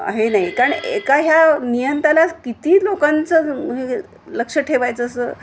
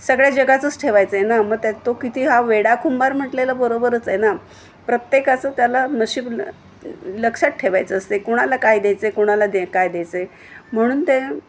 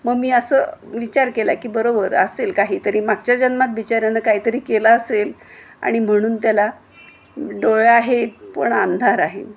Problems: none marked